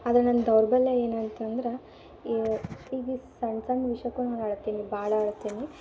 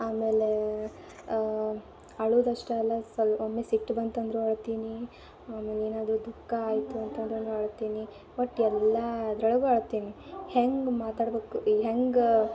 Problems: background sounds at intervals